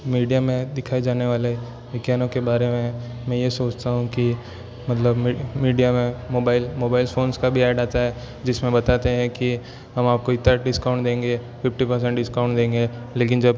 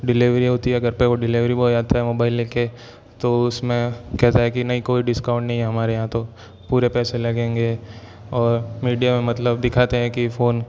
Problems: background sounds at intervals